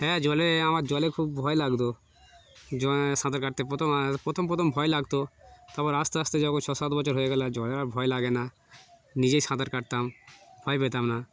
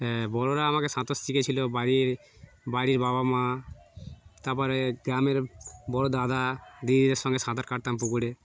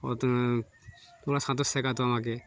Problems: background sounds at intervals